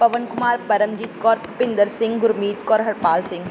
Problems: background sounds at intervals